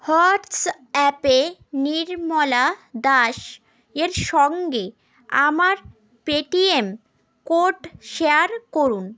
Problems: none marked